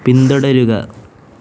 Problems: constant background noise